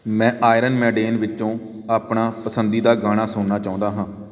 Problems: background sounds at intervals